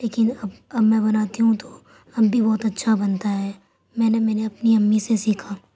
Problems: constant background noise